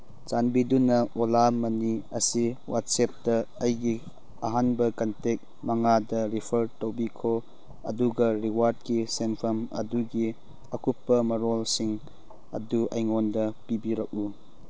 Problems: none marked